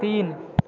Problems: constant background noise